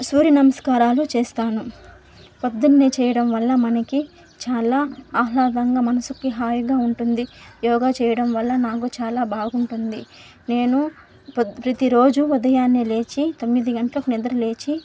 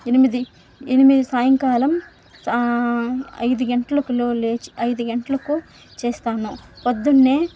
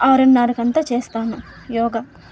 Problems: constant background noise